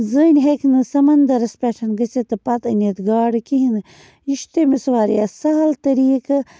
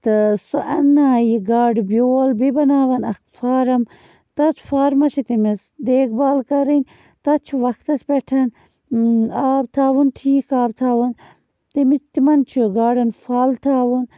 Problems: constant background noise